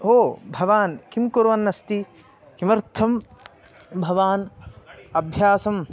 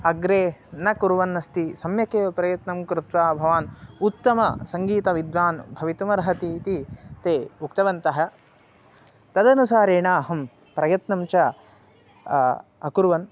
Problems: constant background noise